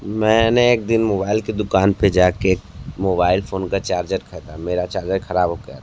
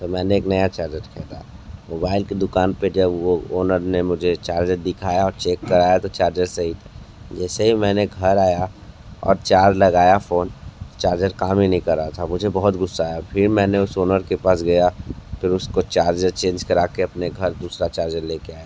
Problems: constant background noise